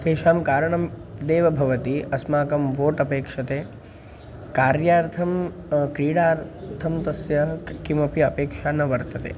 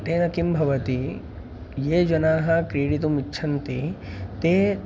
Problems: constant background noise